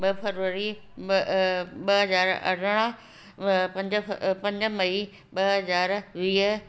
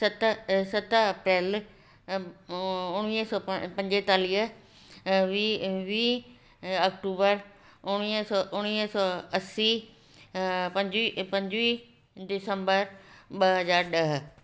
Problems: background sounds at intervals, echo